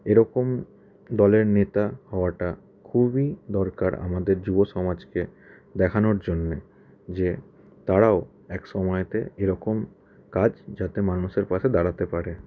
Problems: background sounds at intervals